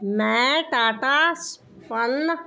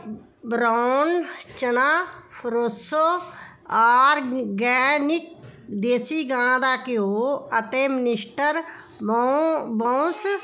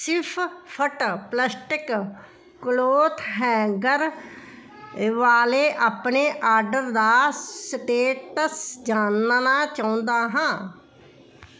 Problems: none marked